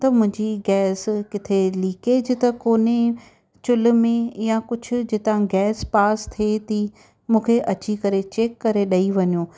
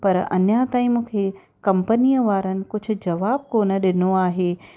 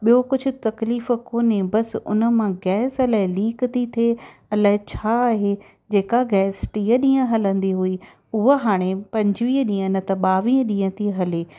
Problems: none marked